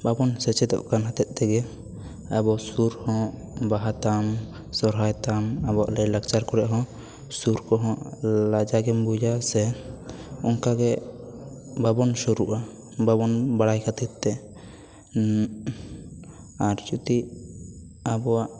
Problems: background conversations at intervals